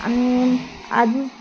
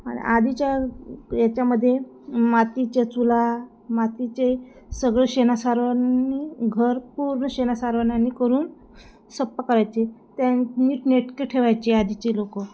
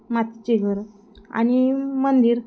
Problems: background sounds at intervals